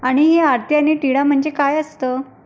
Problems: none marked